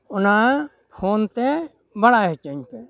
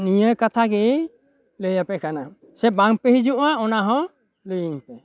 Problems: background sounds at intervals